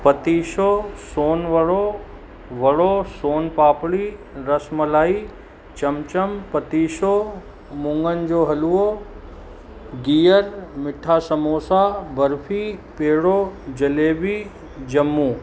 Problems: constant background noise